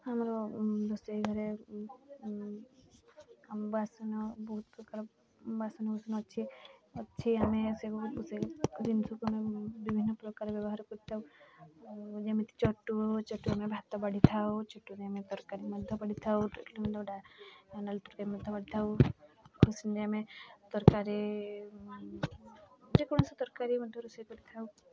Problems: constant background noise, continuous background conversations